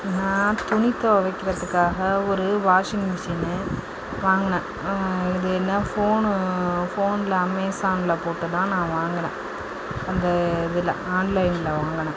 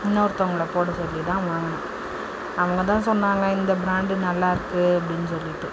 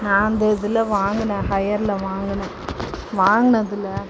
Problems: constant background noise